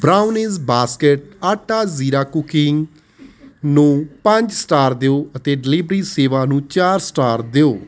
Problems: constant background noise